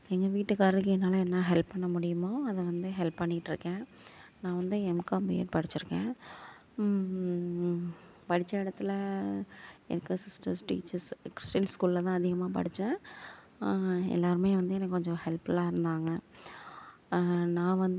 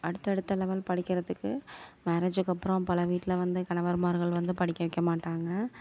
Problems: none marked